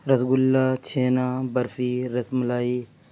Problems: none marked